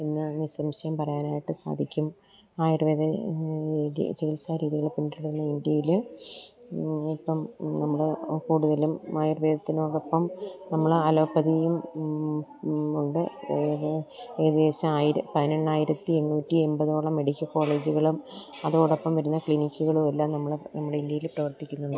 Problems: none marked